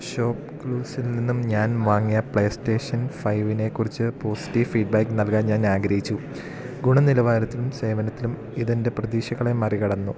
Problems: none marked